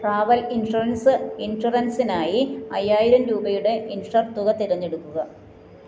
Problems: background sounds at intervals